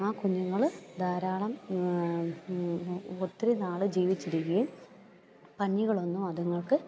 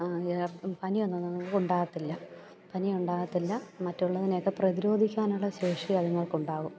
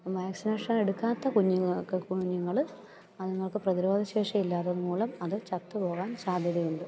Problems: low volume